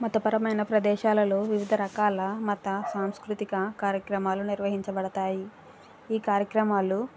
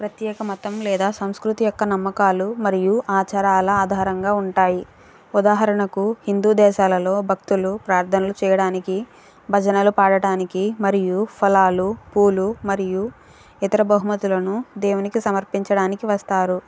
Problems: background sounds at intervals